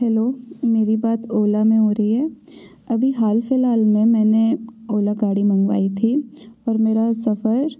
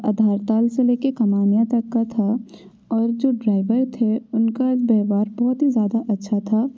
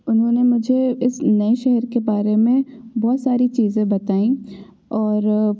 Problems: constant background noise